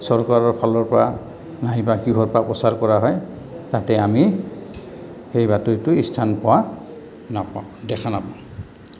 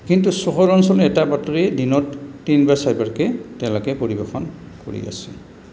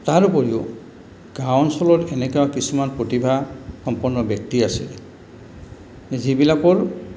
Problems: background sounds at intervals